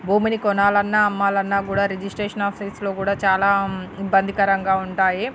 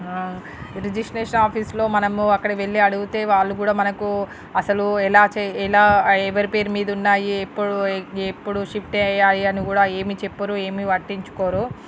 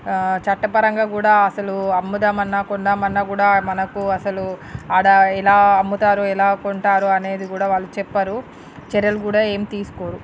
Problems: none marked